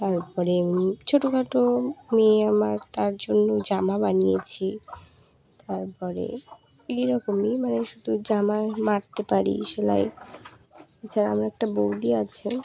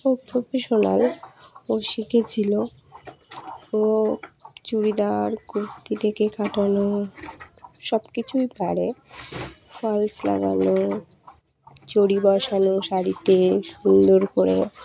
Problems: constant background noise, continuous background conversations